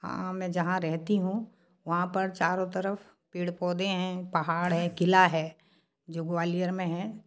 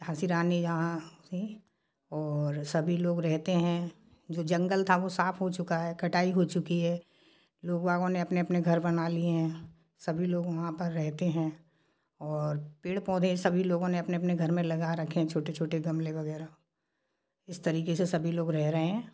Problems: background sounds at intervals